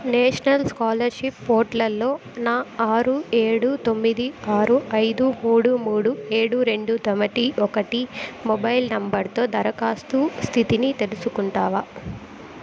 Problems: constant background noise, background conversations at intervals